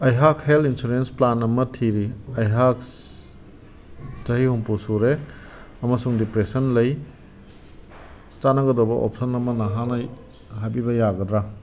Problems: background sounds at intervals